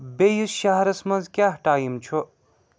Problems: background sounds at intervals